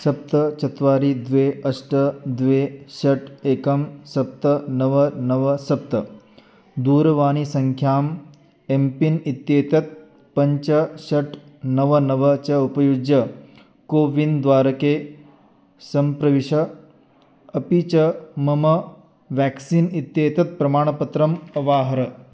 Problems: background sounds at intervals